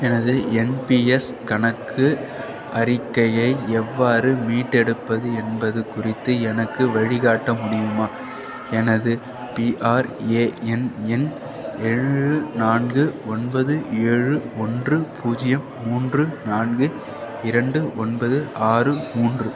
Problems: background sounds at intervals